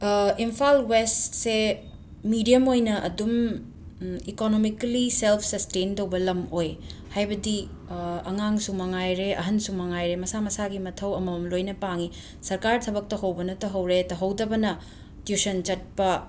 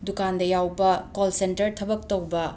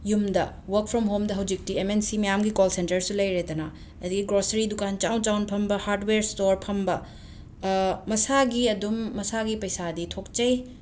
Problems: background sounds at intervals